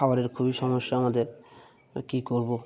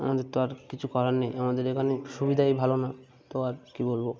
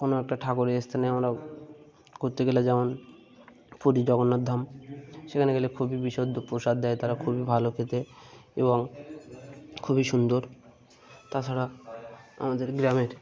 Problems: background sounds at intervals